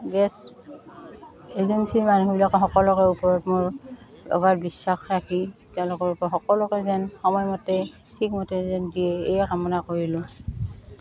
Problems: constant background noise, continuous background conversations